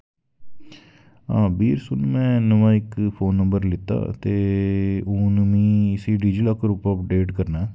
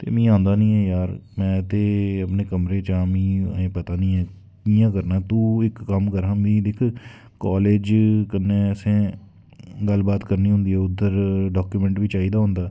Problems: background sounds at intervals